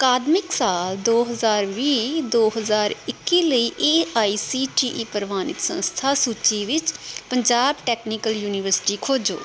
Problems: constant background noise